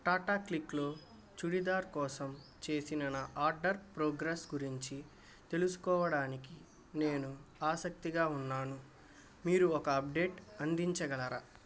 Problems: background sounds at intervals